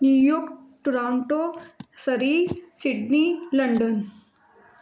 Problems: background sounds at intervals, background conversations at intervals